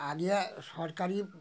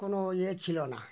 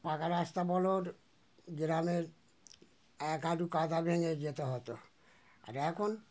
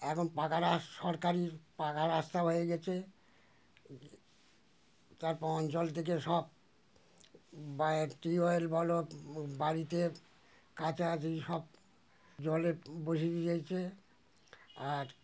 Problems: none marked